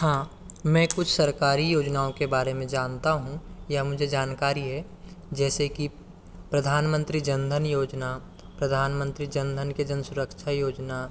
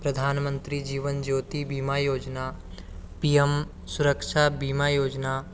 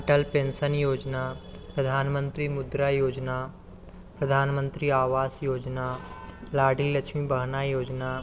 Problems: constant background noise